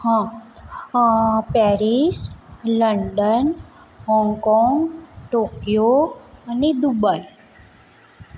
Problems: constant background noise